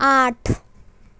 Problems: none marked